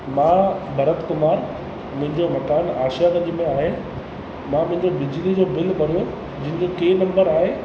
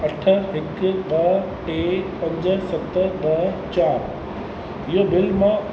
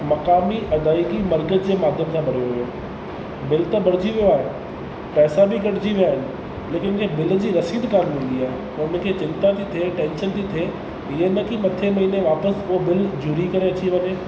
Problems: constant background noise, echo